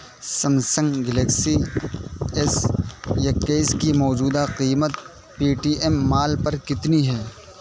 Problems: constant background noise